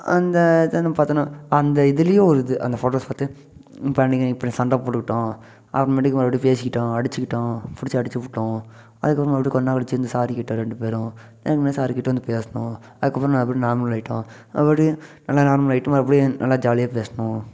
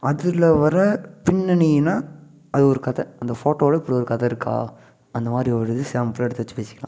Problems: none marked